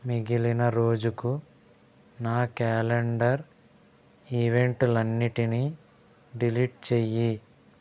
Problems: constant background noise